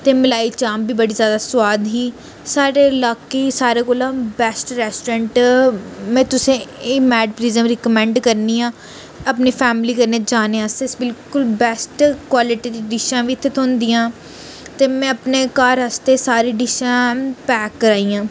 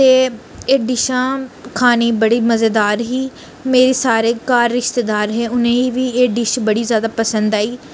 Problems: none marked